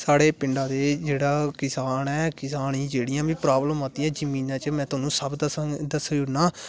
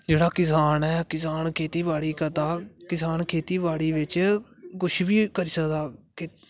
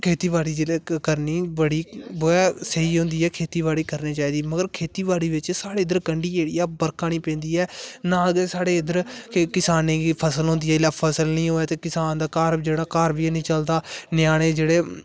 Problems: constant background noise